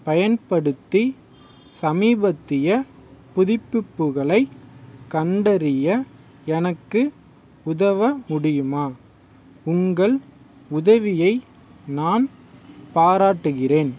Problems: background sounds at intervals